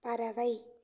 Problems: low volume